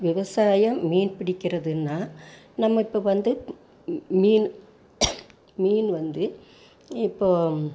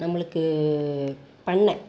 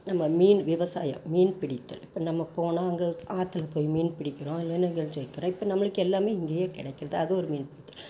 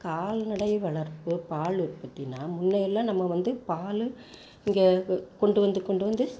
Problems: background sounds at intervals